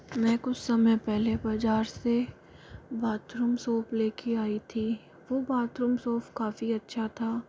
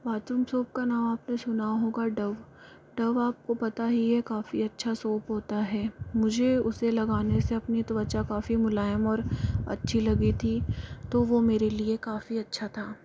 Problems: low volume